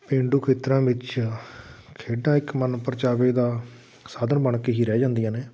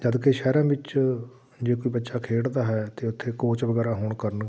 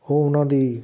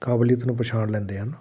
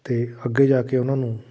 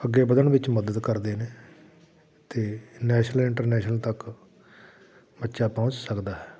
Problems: none marked